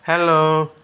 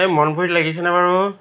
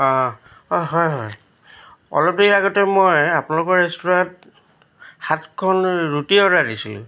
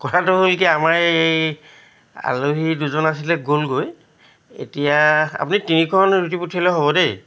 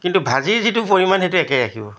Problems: none marked